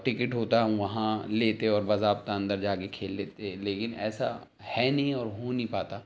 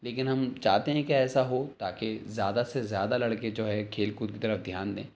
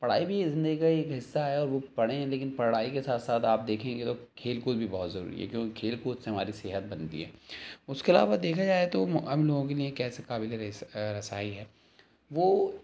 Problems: none marked